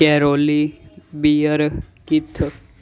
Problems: none marked